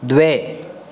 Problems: constant background noise